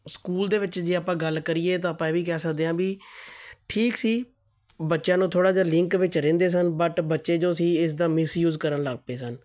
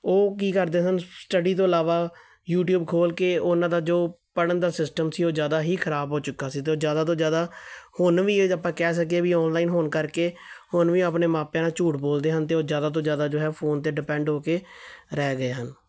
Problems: none marked